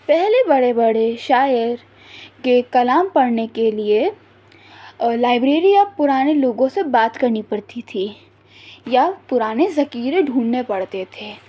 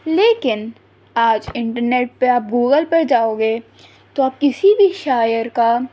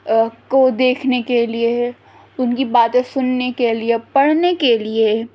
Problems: none marked